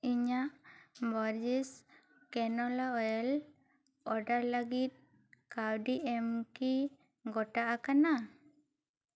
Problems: low volume